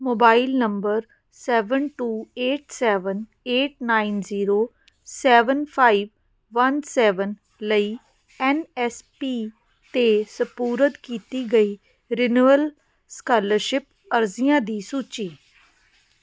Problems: constant background noise